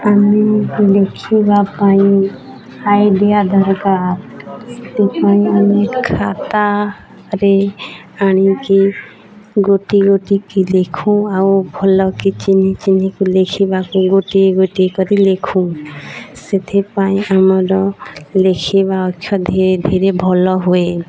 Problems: constant background noise, continuous background conversations